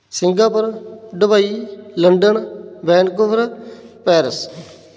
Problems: background sounds at intervals